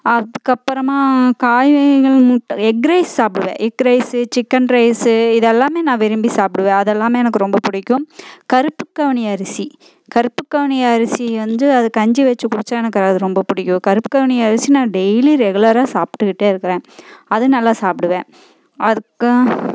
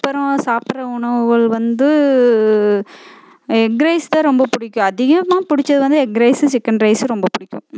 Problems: constant background noise